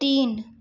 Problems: none marked